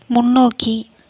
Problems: none marked